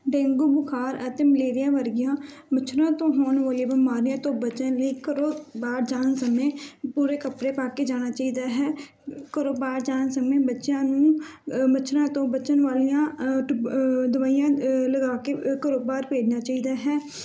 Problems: none marked